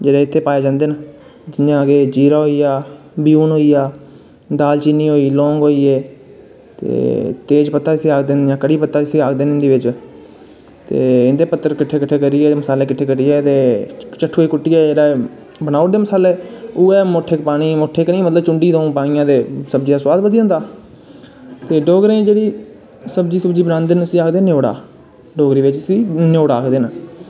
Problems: none marked